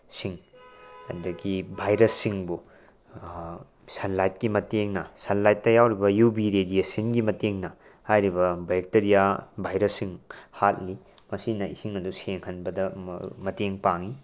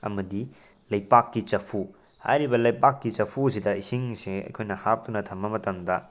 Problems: none marked